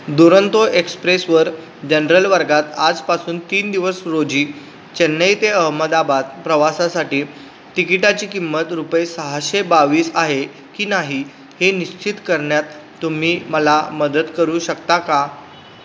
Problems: constant background noise, background conversations at intervals